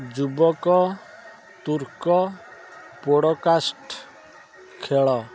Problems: constant background noise